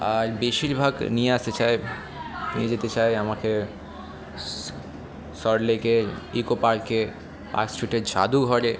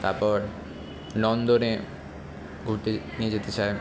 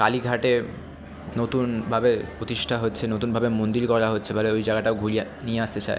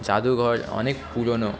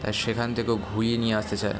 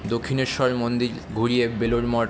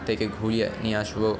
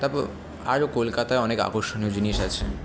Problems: constant background noise, background conversations at intervals